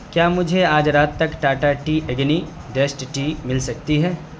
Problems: none marked